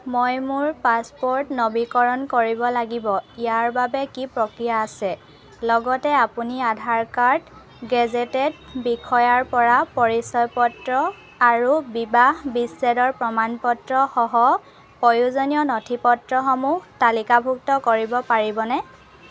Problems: none marked